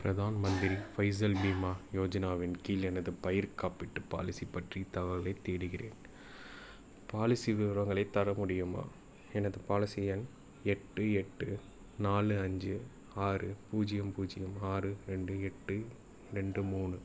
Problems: none marked